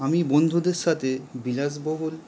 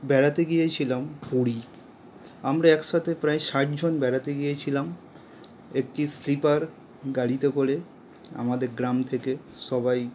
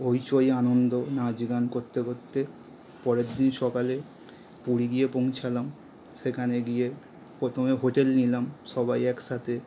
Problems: none marked